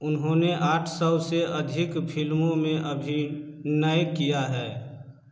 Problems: echo